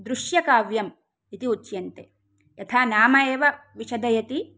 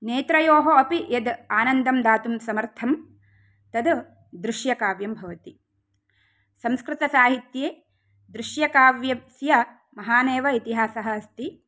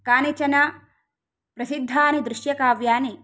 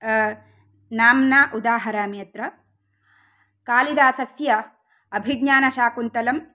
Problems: none marked